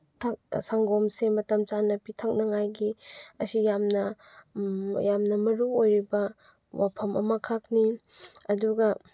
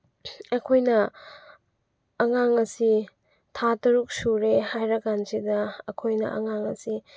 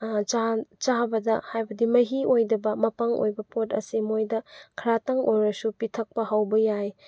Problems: none marked